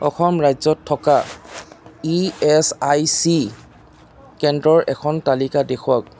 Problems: constant background noise